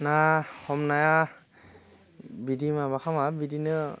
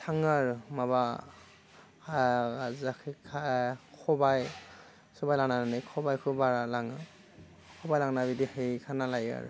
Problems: constant background noise